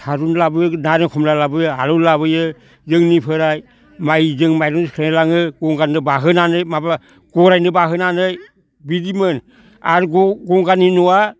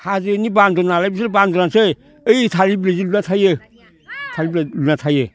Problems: none marked